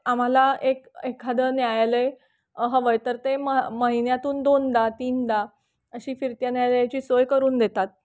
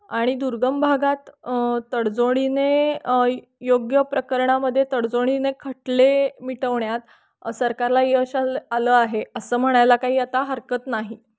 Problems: none marked